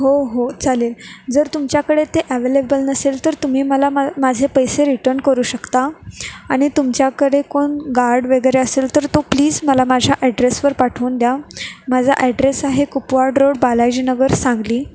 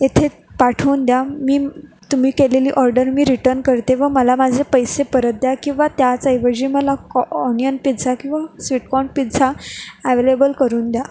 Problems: background sounds at intervals